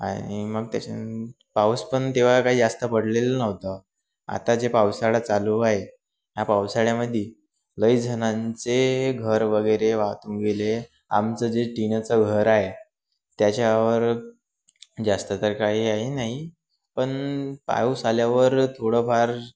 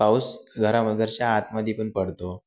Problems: none marked